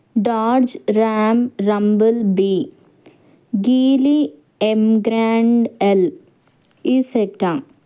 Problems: none marked